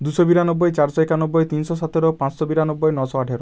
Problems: constant background noise